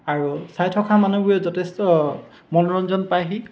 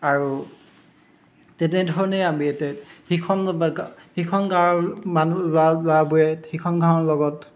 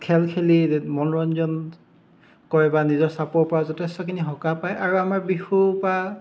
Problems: constant background noise, background conversations at intervals